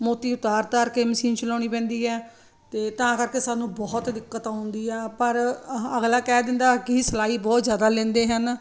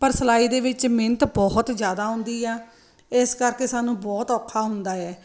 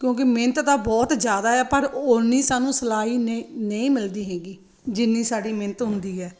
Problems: none marked